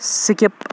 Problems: constant background noise